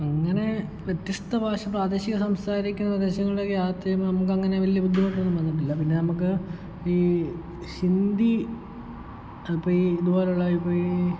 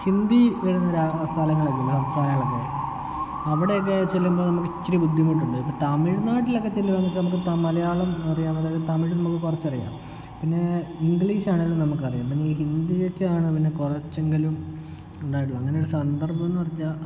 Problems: background sounds at intervals, low volume